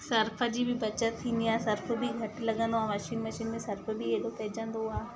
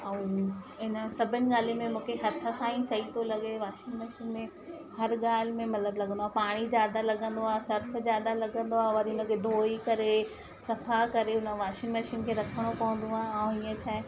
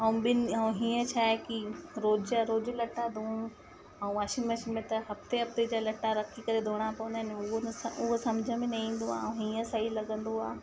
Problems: constant background noise